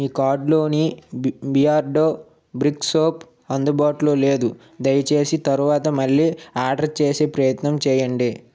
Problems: none marked